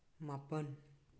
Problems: low volume